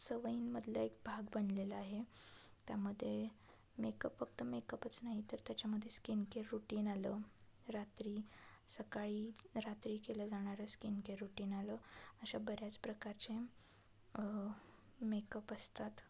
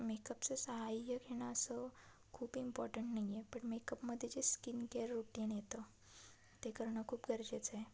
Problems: constant background noise, low volume